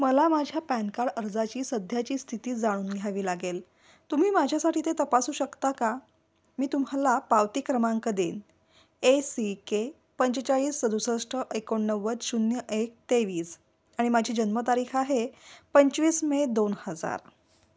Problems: none marked